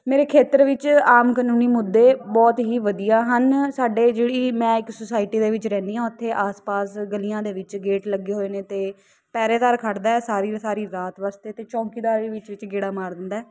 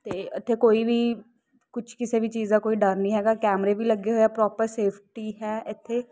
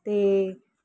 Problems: none marked